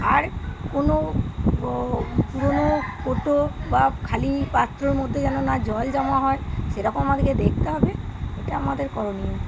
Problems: none marked